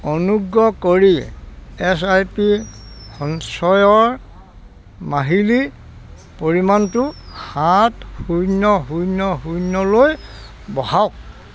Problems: none marked